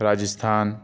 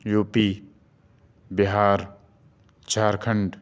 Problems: none marked